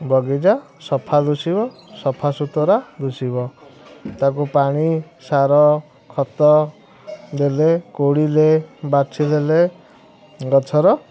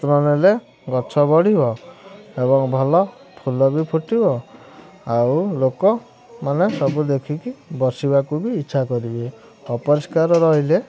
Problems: constant background noise